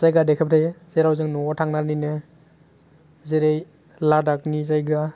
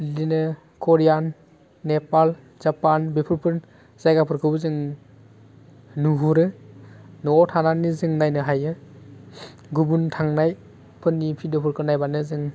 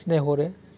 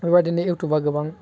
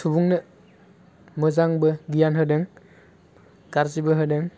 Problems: constant background noise